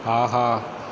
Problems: constant background noise